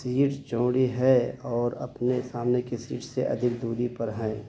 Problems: constant background noise, low volume